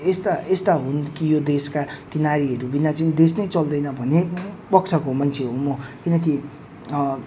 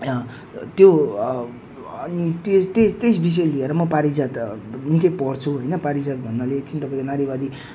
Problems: none marked